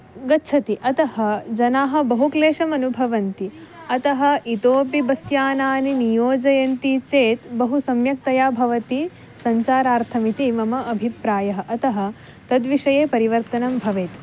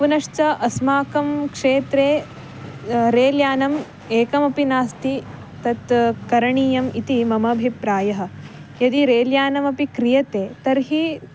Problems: constant background noise